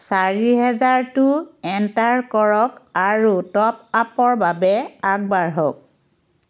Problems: constant background noise